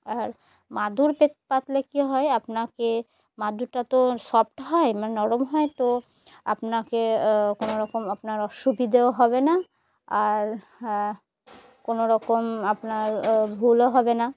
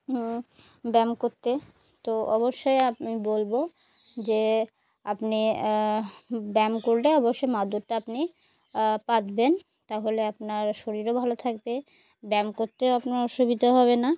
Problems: background sounds at intervals